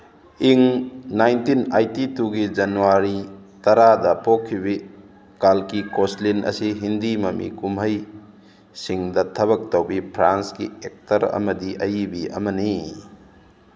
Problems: constant background noise